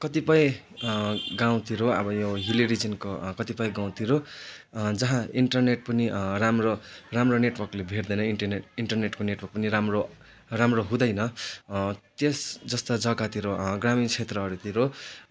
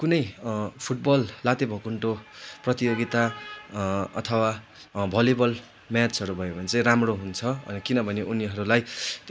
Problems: constant background noise